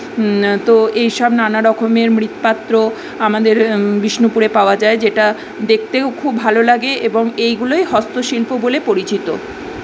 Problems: none marked